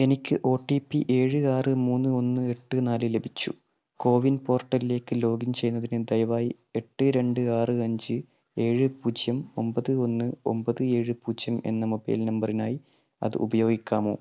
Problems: none marked